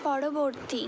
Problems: constant background noise